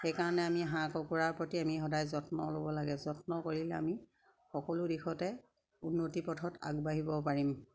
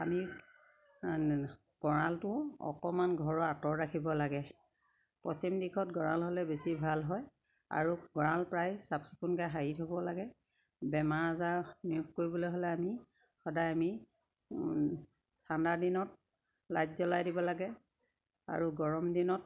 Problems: constant background noise, background conversations at intervals